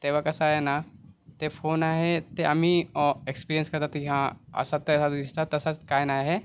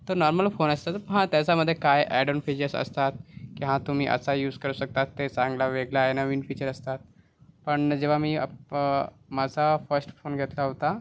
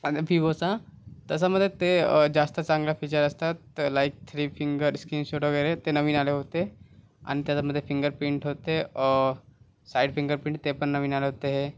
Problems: background sounds at intervals